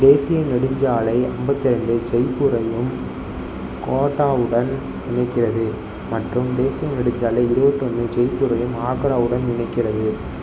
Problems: background sounds at intervals